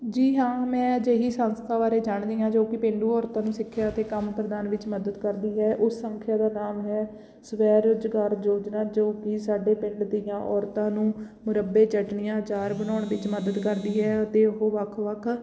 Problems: constant background noise